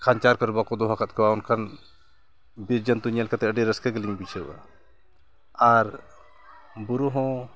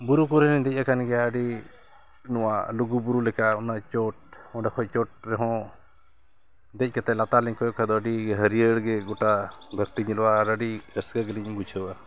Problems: constant background noise, background conversations at intervals